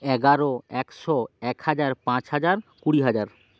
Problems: constant background noise